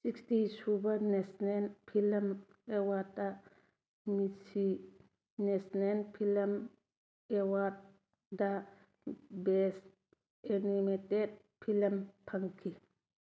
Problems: none marked